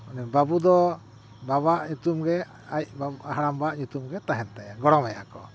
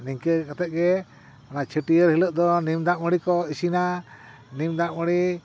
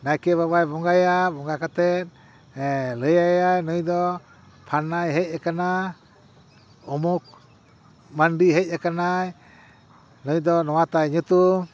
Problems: none marked